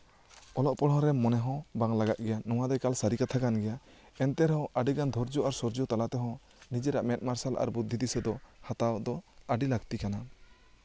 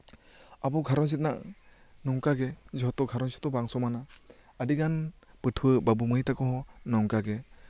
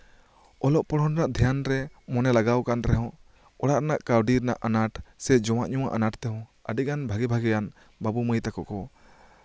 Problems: background conversations at intervals